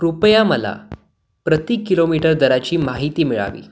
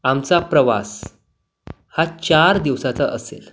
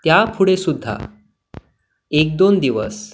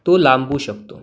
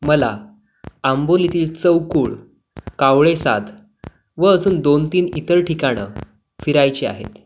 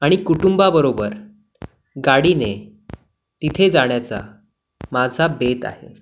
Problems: none marked